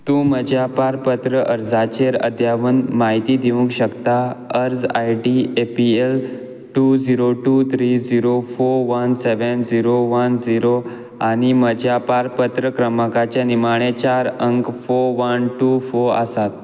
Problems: none marked